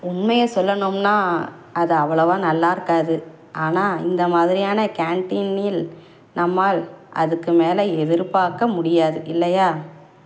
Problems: none marked